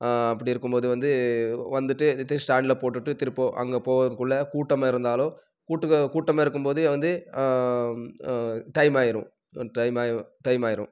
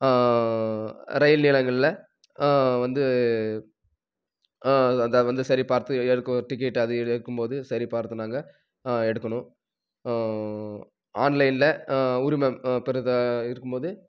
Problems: none marked